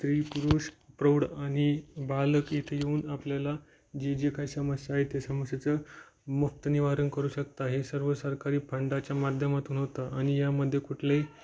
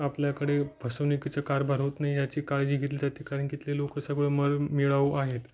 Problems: none marked